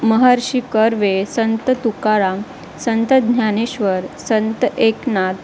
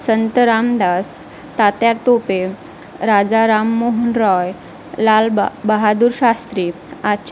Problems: constant background noise